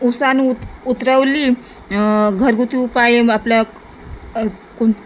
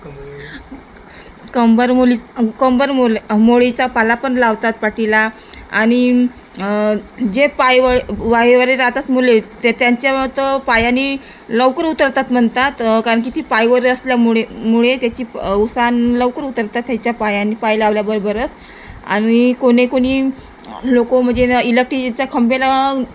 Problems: none marked